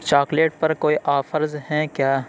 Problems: none marked